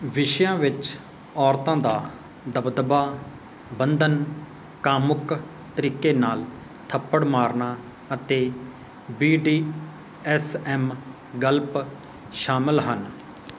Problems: constant background noise